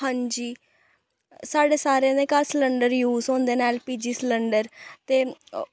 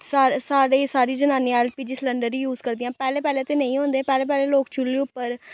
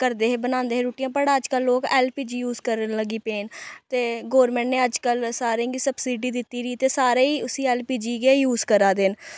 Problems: none marked